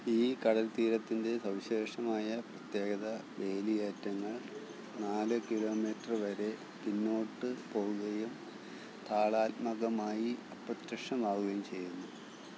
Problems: constant background noise, low volume